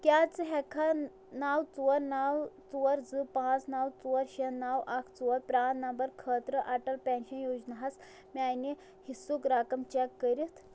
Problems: background sounds at intervals